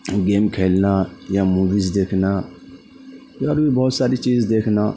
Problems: constant background noise